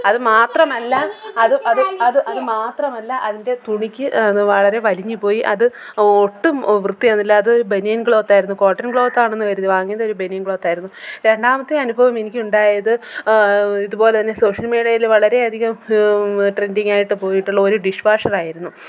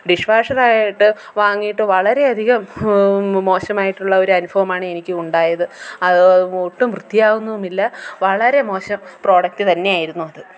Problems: background conversations at intervals